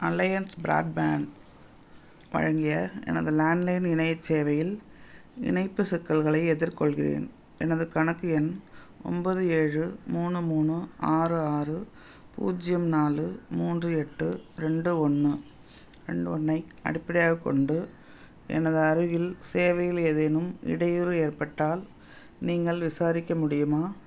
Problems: none marked